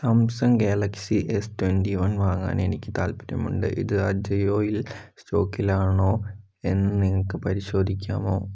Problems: none marked